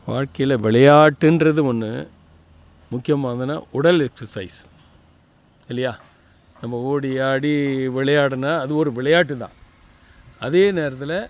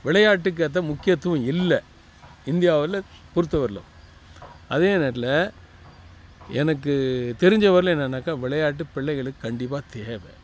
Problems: none marked